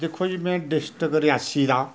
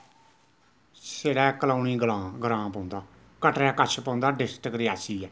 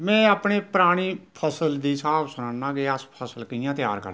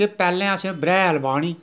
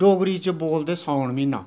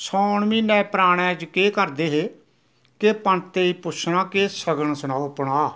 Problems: none marked